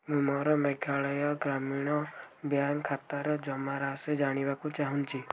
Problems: none marked